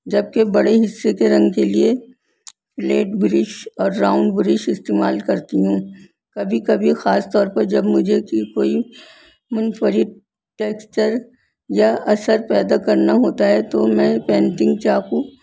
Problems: constant background noise